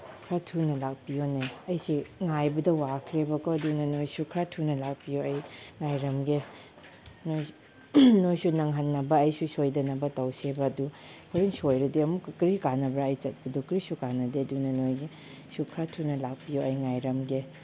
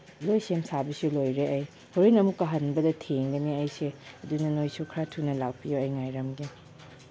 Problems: background sounds at intervals